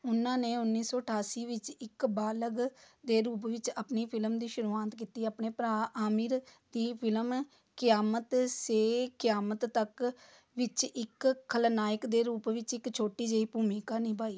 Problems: background conversations at intervals